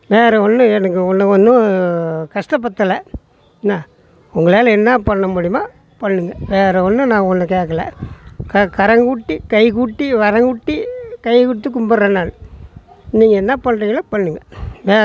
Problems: background sounds at intervals, background conversations at intervals